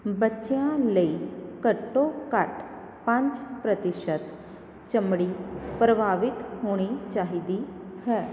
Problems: background sounds at intervals